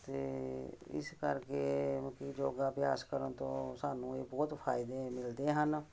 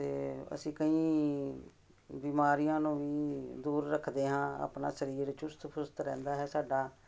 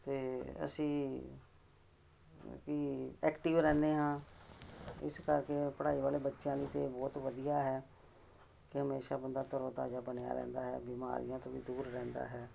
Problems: constant background noise